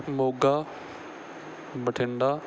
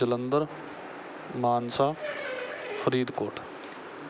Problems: background sounds at intervals